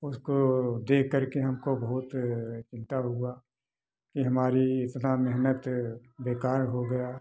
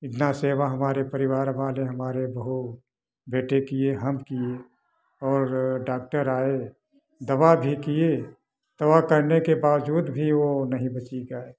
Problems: background sounds at intervals